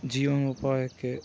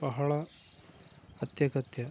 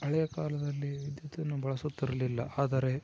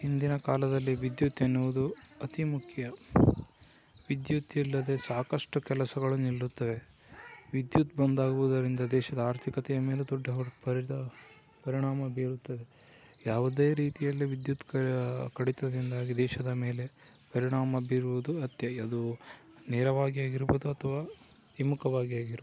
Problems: constant background noise, low volume